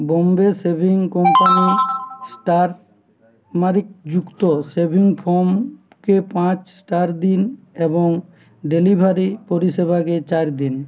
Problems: none marked